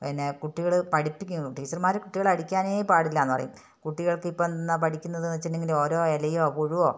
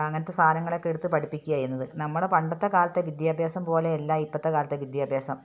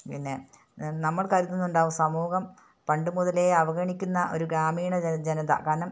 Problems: none marked